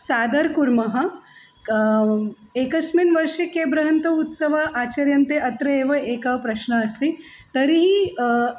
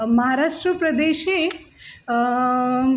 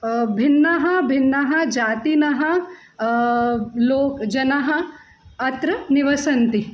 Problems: constant background noise